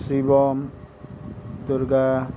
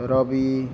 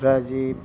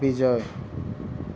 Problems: background sounds at intervals